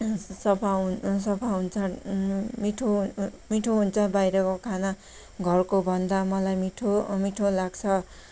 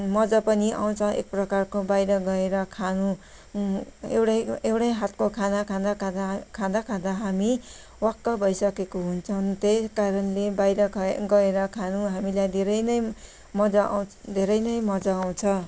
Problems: background sounds at intervals